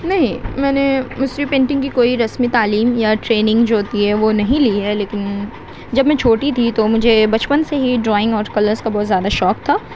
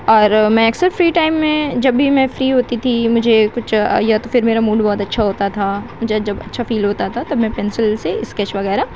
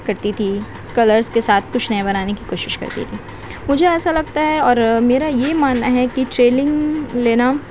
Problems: constant background noise